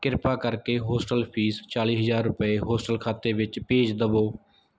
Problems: none marked